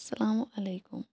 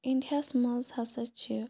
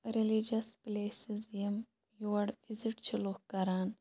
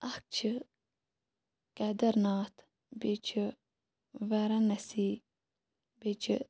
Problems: none marked